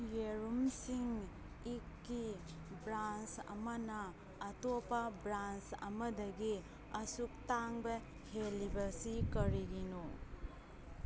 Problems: background sounds at intervals, background conversations at intervals